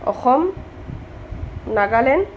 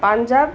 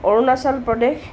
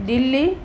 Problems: constant background noise